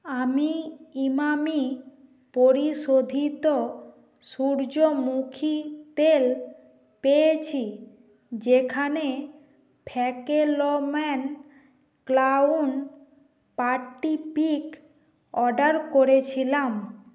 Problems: constant background noise